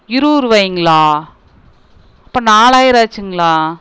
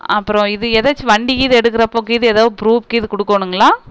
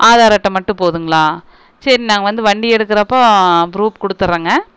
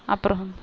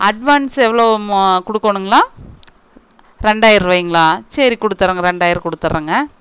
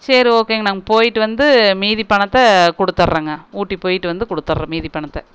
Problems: none marked